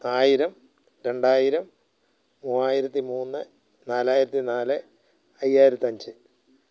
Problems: none marked